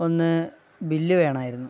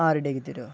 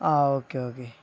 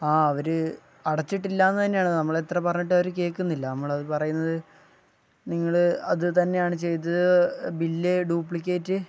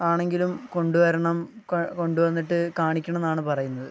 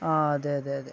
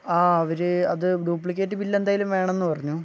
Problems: low volume